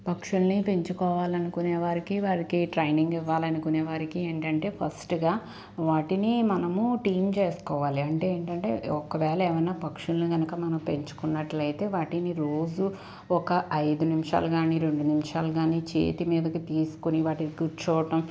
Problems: constant background noise